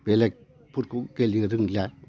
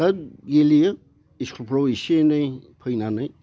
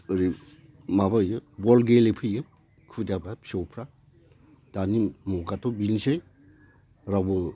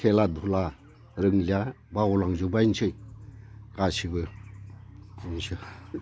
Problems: constant background noise